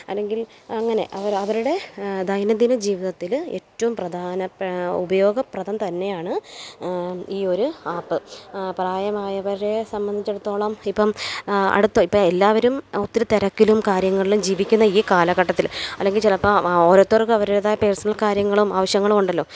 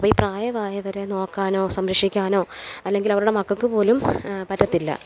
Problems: background sounds at intervals